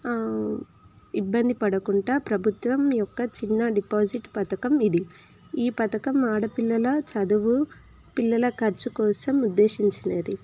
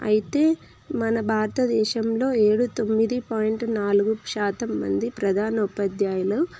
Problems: constant background noise